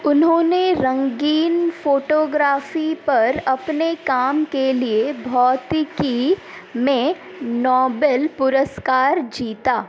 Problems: constant background noise